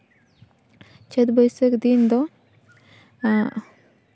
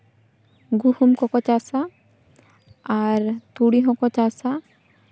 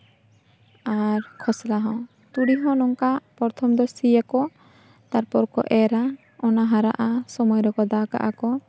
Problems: background sounds at intervals